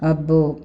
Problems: none marked